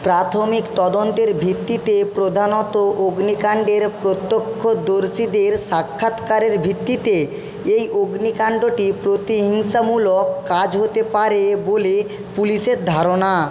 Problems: constant background noise